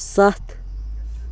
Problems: background sounds at intervals